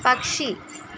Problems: constant background noise